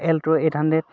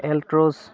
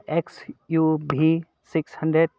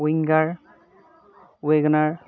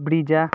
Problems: constant background noise